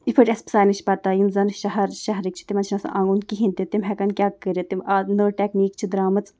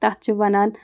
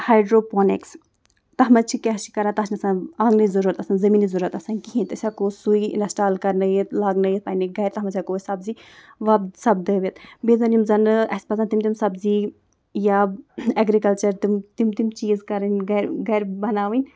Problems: background sounds at intervals